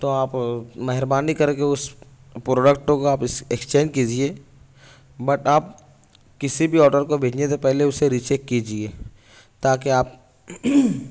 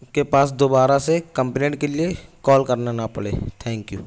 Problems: none marked